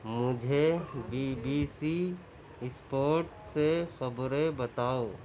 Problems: none marked